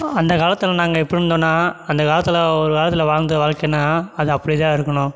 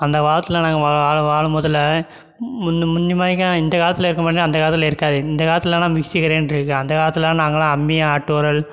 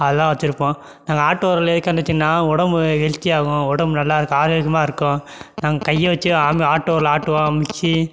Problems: background sounds at intervals